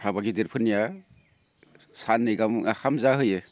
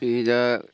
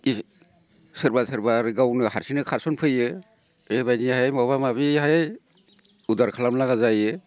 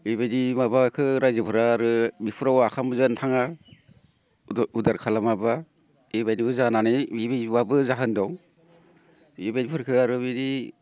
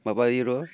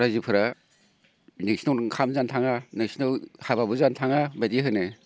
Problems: constant background noise